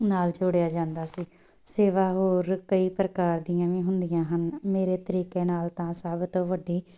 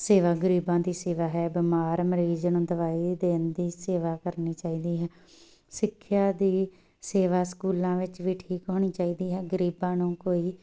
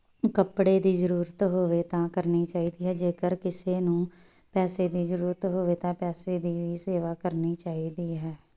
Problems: background sounds at intervals